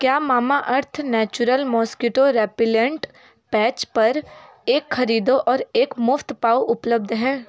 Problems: continuous background conversations